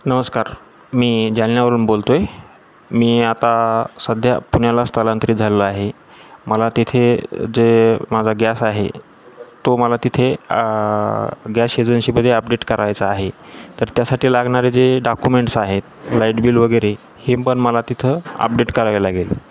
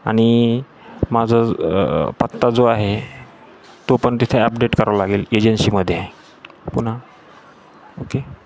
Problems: constant background noise, background conversations at intervals